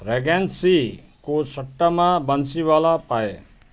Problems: none marked